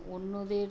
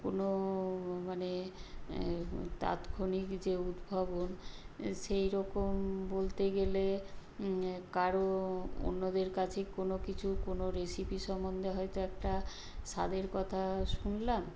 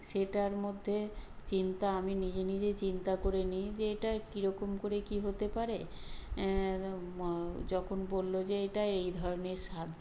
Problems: none marked